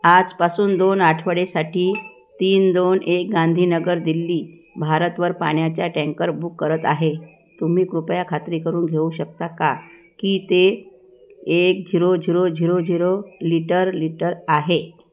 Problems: none marked